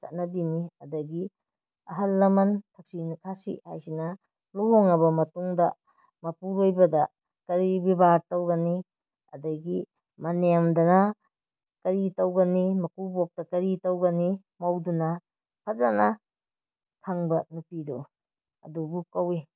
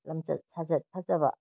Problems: none marked